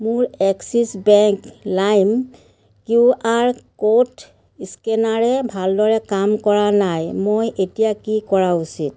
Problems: constant background noise